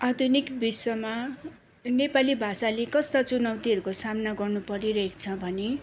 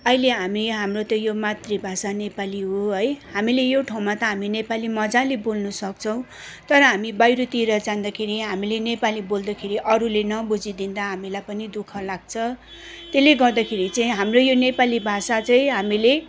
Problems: constant background noise